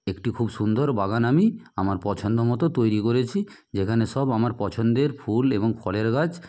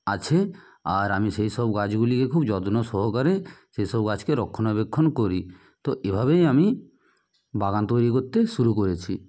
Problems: background sounds at intervals